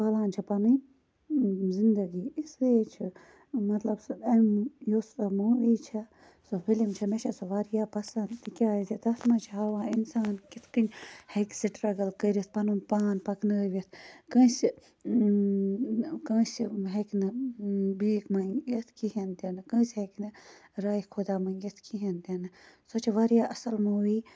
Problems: constant background noise